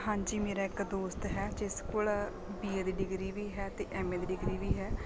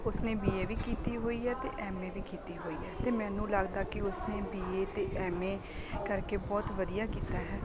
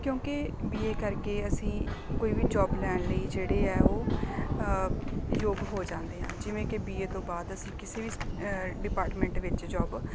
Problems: constant background noise